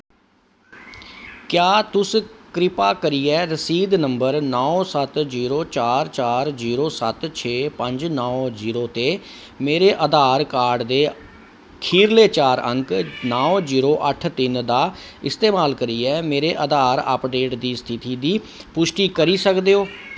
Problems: none marked